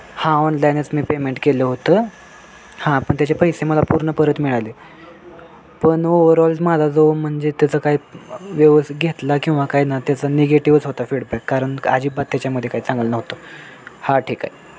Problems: constant background noise